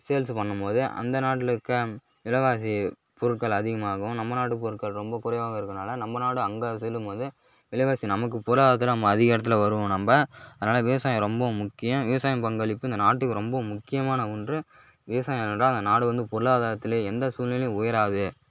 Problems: none marked